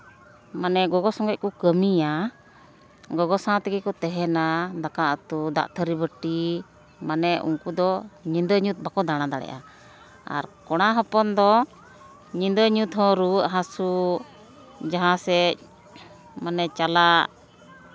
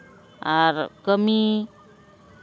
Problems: none marked